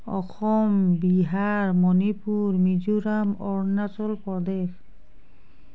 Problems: none marked